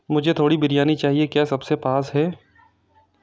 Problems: none marked